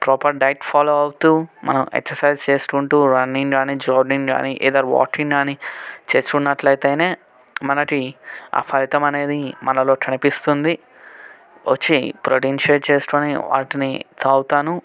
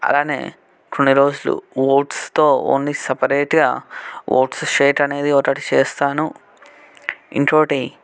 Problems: background conversations at intervals